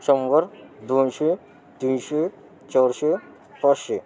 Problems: continuous background conversations